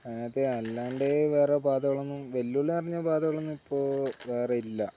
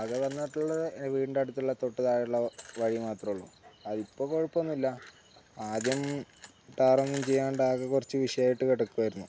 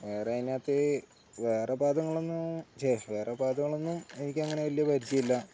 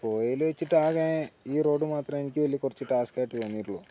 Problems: none marked